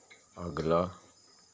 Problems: constant background noise, low volume